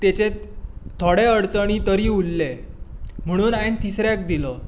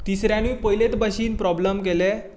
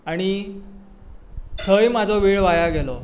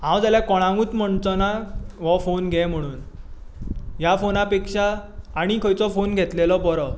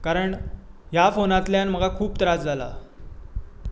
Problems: constant background noise